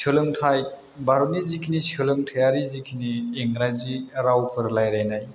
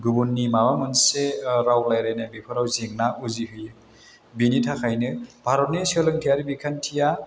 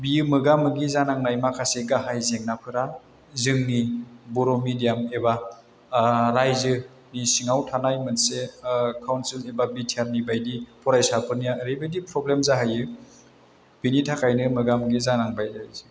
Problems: none marked